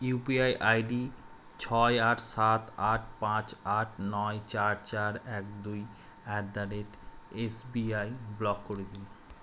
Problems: constant background noise